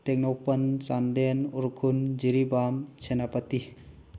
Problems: none marked